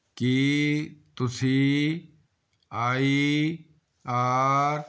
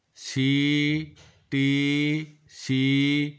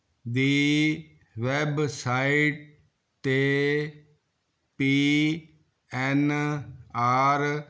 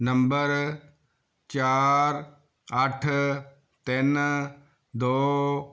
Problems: none marked